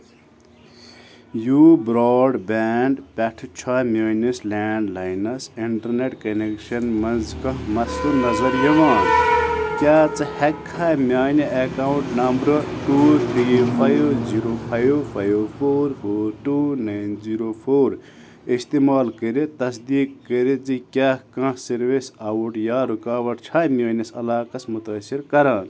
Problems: continuous background conversations